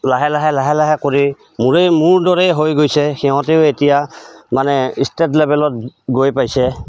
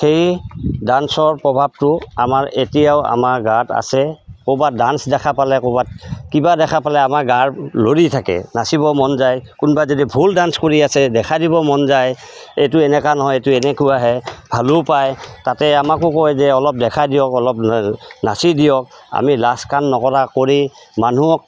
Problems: constant background noise